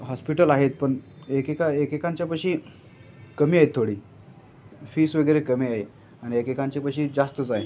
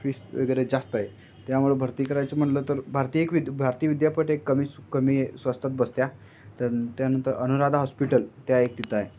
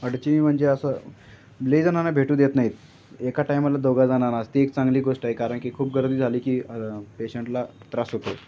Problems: constant background noise, background conversations at intervals